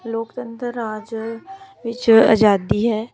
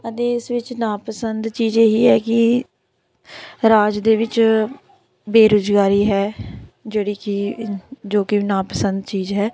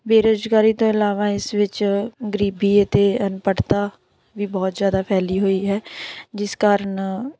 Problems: continuous background conversations